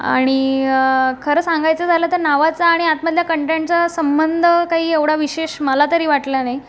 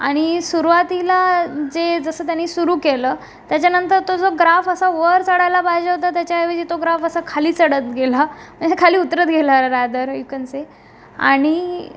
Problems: constant background noise